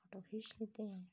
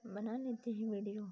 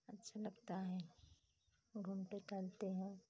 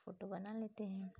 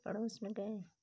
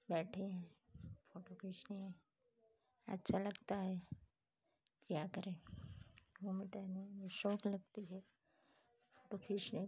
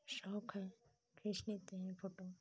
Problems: none marked